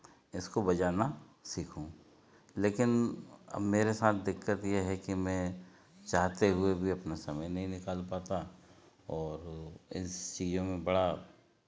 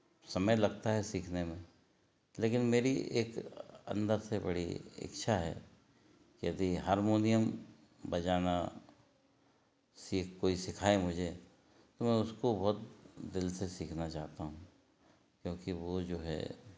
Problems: none marked